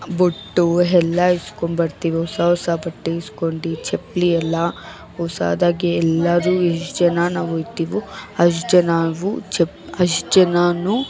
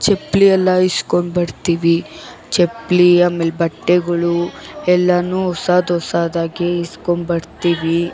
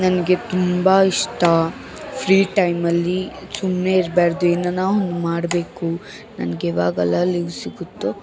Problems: background sounds at intervals, background conversations at intervals